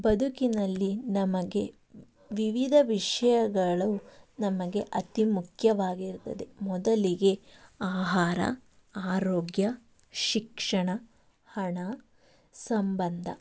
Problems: background sounds at intervals